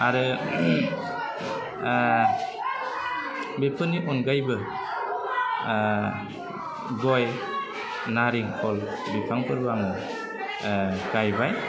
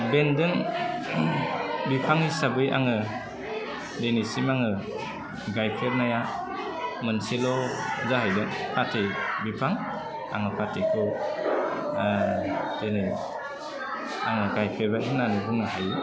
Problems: low volume